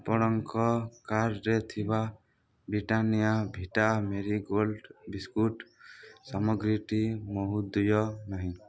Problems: low volume